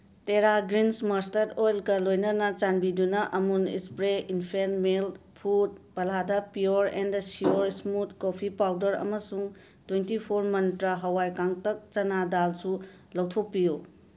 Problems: background sounds at intervals